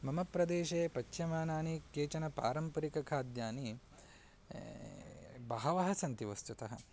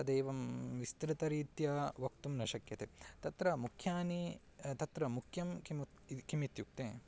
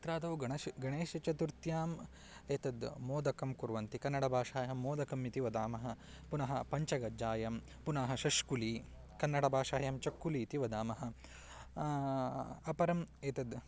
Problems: none marked